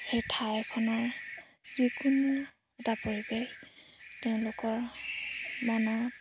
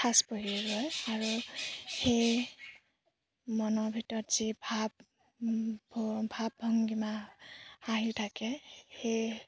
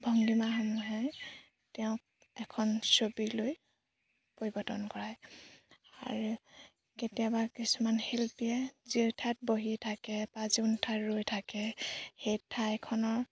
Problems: background sounds at intervals